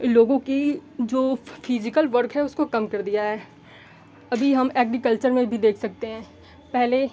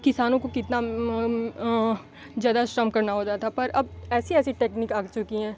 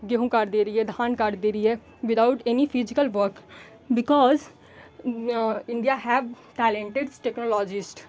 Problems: none marked